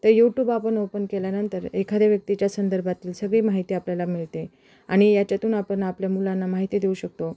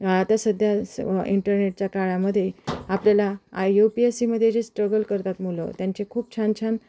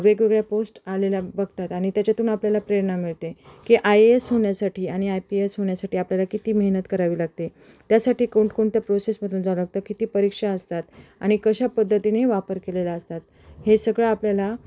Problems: background sounds at intervals, background conversations at intervals